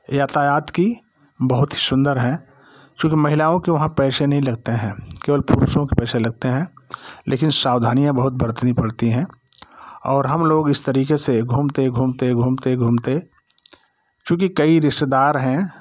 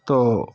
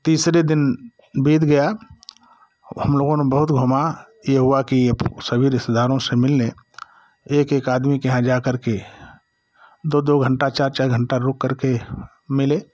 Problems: background conversations at intervals